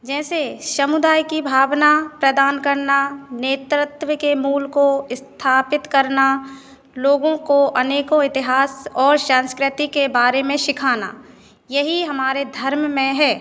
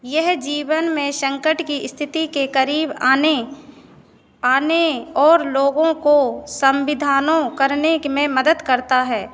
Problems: constant background noise